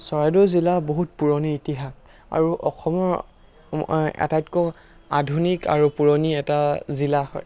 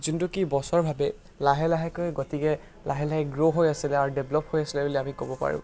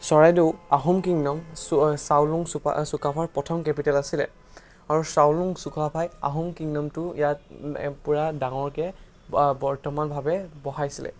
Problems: constant background noise